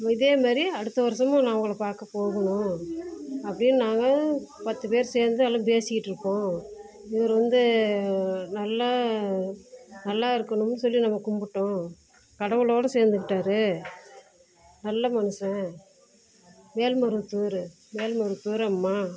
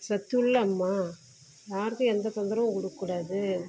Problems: constant background noise, low volume